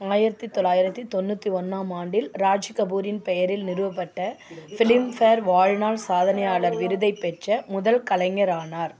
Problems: constant background noise